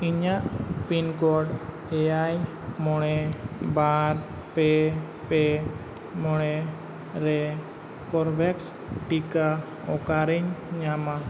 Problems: none marked